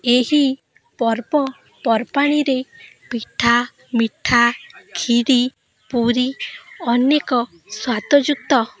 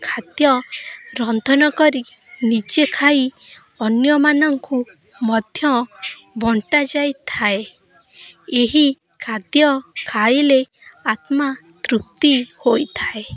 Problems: constant background noise, continuous background conversations